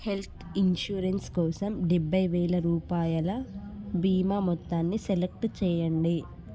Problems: none marked